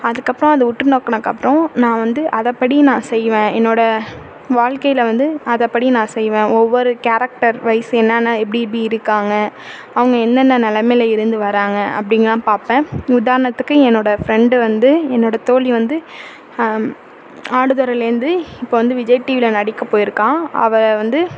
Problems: constant background noise